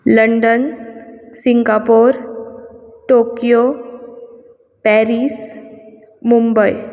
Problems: background sounds at intervals